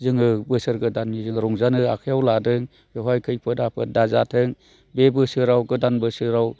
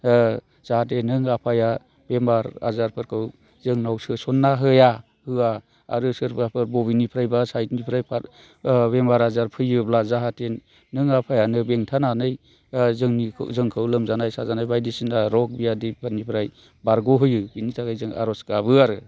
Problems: constant background noise